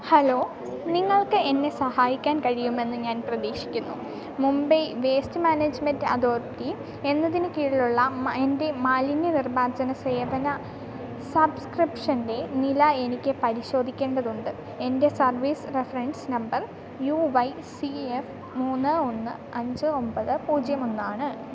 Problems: none marked